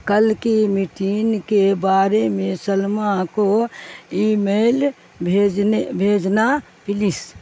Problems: constant background noise